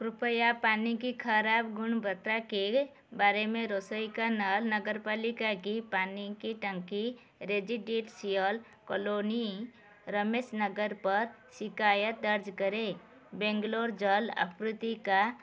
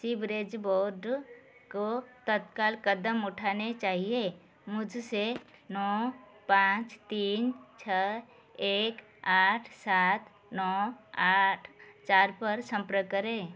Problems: none marked